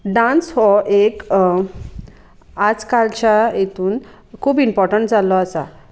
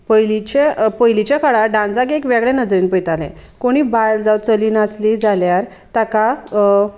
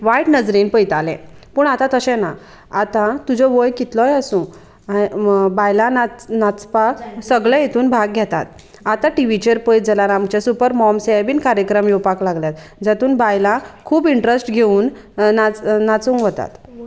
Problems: constant background noise, background conversations at intervals